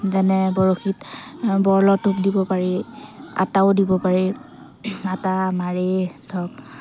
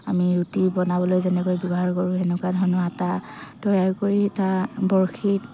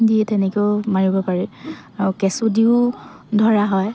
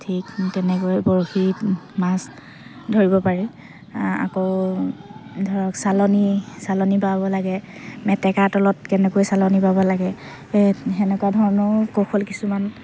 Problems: none marked